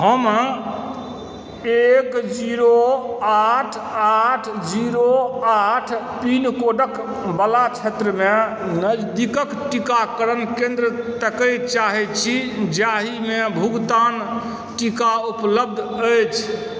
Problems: background sounds at intervals